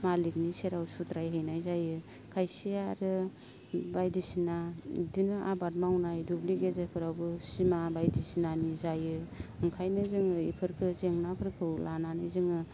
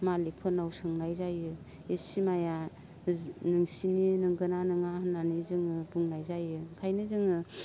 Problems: low volume